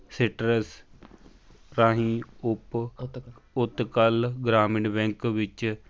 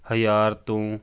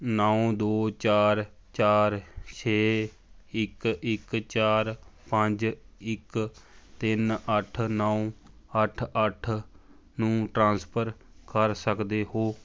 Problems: background conversations at intervals